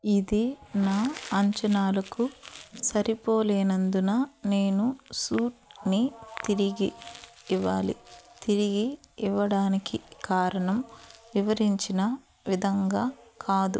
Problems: background sounds at intervals